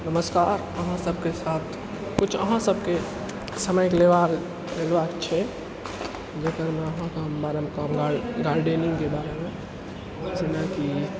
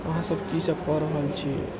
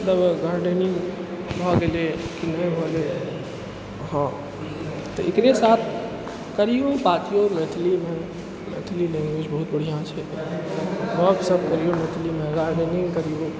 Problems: background sounds at intervals